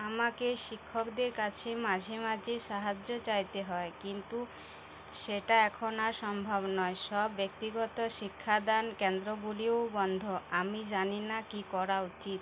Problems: constant background noise